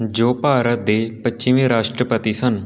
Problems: background sounds at intervals